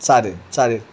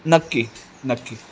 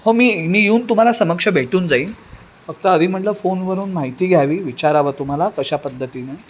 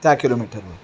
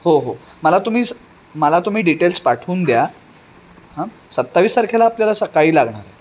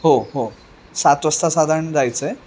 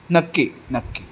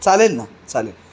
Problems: none marked